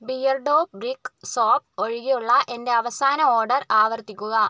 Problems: none marked